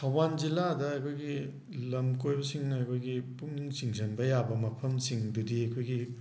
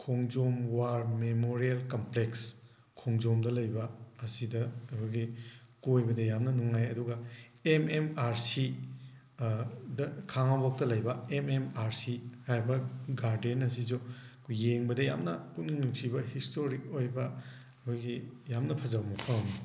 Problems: background sounds at intervals